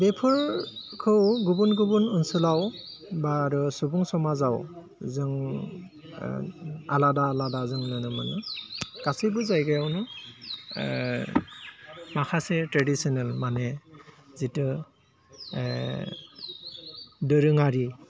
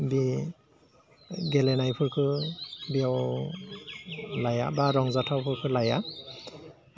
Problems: constant background noise